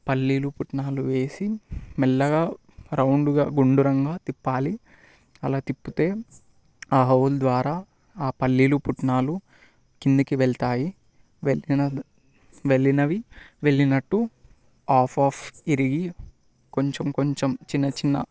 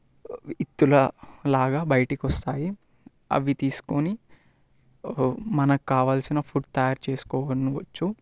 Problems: constant background noise